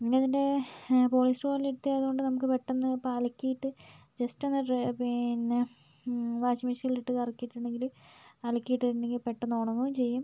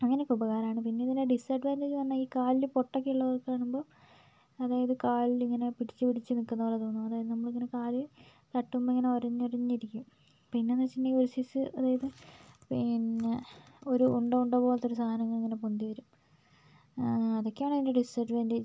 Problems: low volume